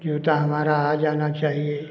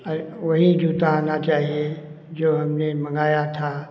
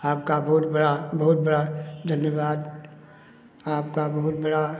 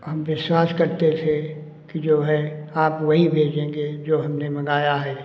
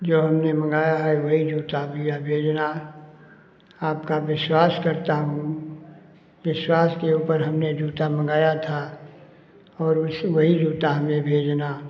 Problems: constant background noise